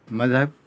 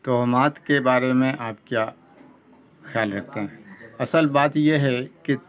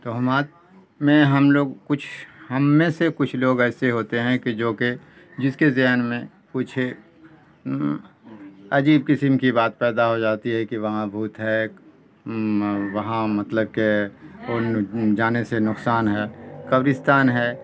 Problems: constant background noise